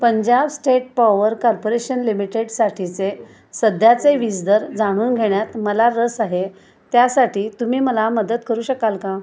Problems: constant background noise, continuous background conversations